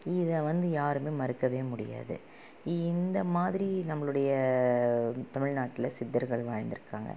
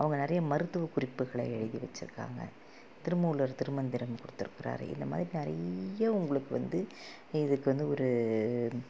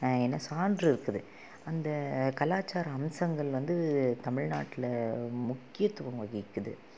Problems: low volume